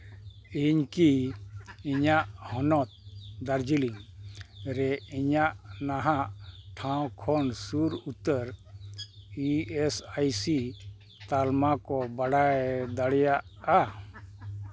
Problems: background sounds at intervals, low volume